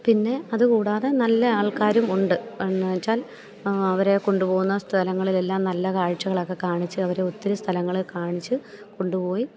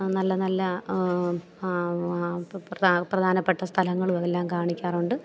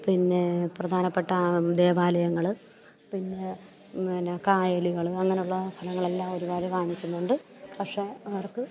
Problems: none marked